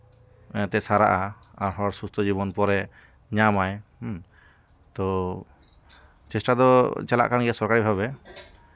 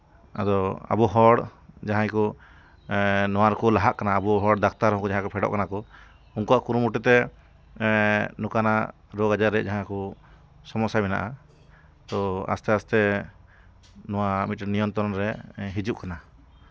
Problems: background sounds at intervals